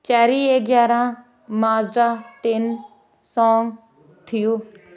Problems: background sounds at intervals